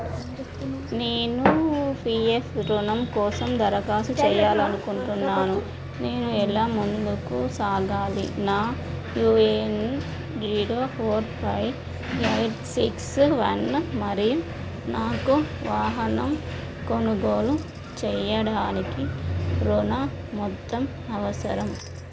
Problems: constant background noise